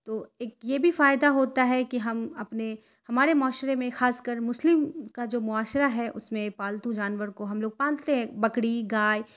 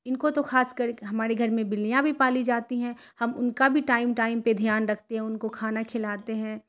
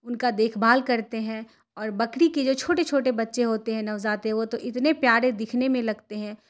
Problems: none marked